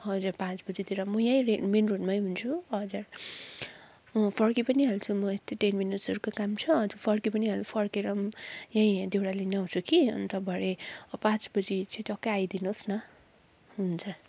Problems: none marked